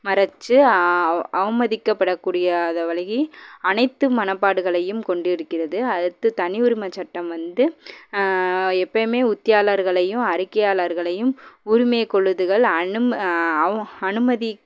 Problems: background sounds at intervals